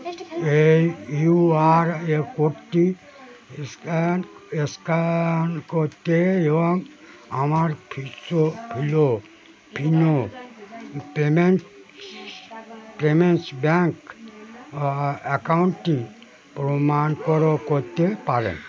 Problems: constant background noise, continuous background conversations